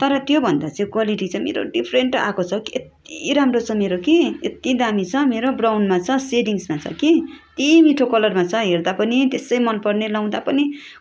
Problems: constant background noise, background conversations at intervals